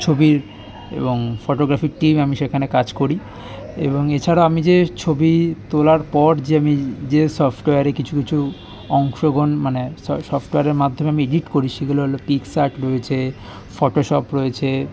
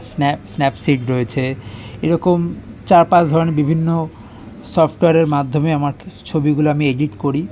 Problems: constant background noise, continuous background conversations